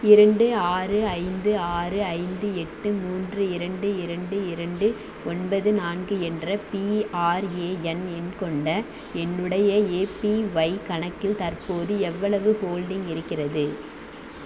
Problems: constant background noise